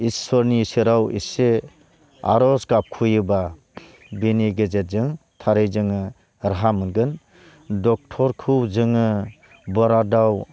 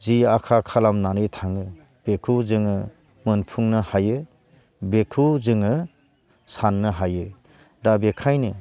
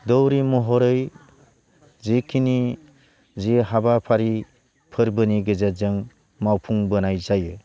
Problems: none marked